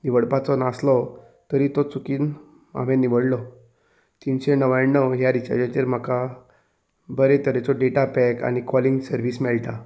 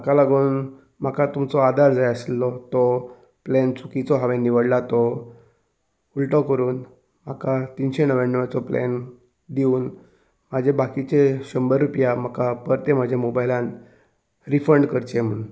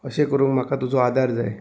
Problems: background sounds at intervals